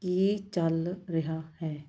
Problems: background sounds at intervals